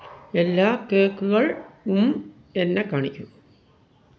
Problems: background sounds at intervals